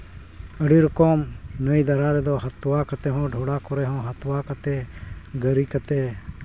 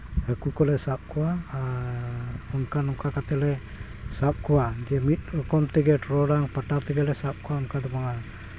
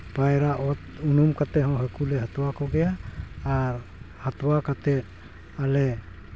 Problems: background sounds at intervals